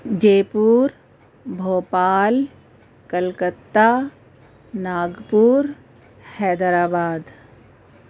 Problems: constant background noise